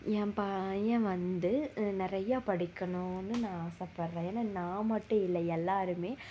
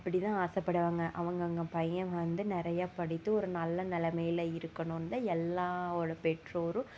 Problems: low volume